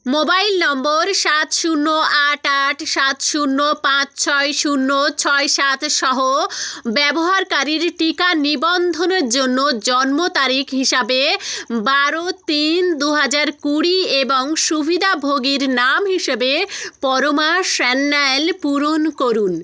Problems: none marked